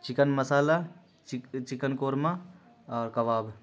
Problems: constant background noise